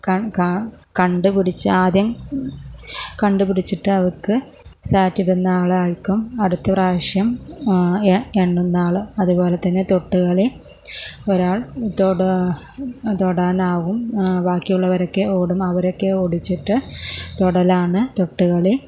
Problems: low volume